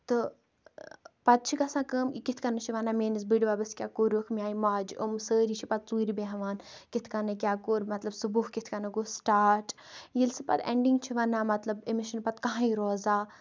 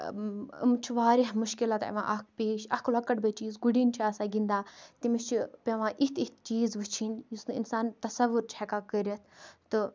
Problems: background sounds at intervals